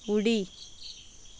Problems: background sounds at intervals